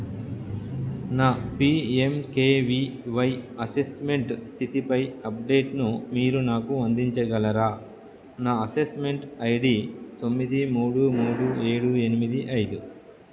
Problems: background sounds at intervals